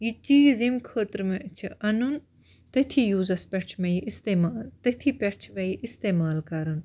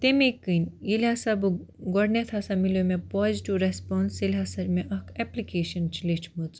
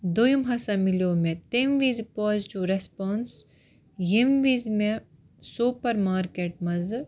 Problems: background sounds at intervals